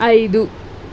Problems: constant background noise